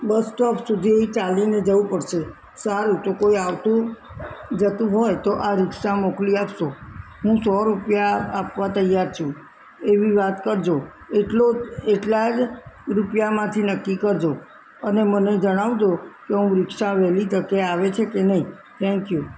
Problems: constant background noise